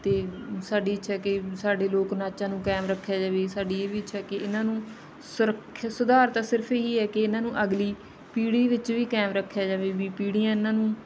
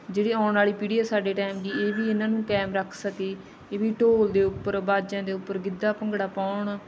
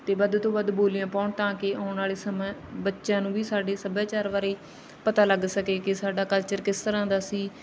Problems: none marked